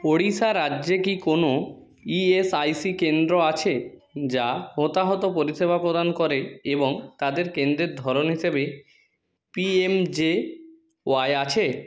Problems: background conversations at intervals